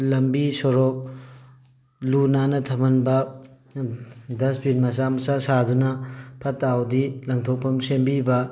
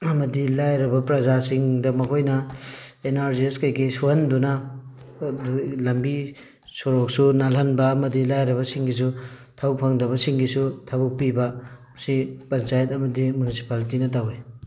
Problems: background sounds at intervals